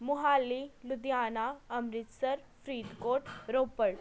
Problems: none marked